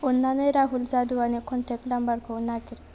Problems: constant background noise